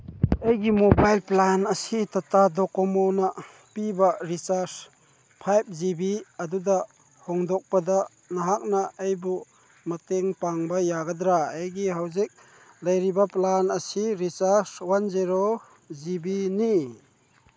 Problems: none marked